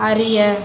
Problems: constant background noise